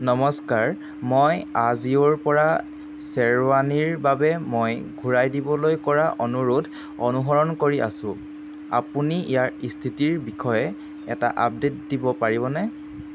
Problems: none marked